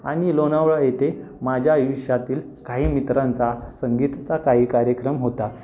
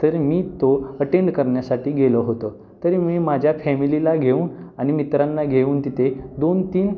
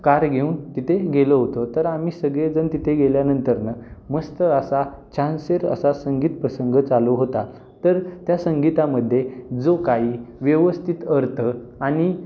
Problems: constant background noise, background conversations at intervals